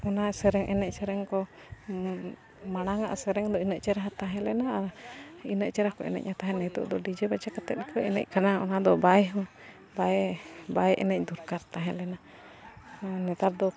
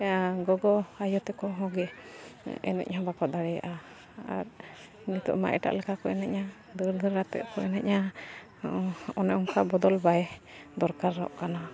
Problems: none marked